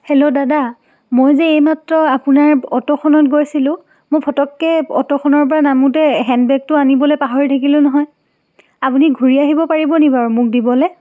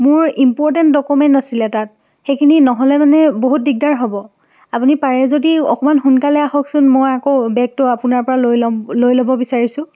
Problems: none marked